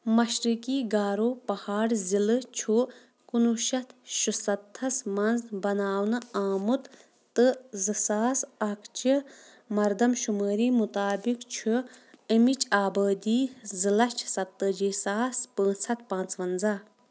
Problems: none marked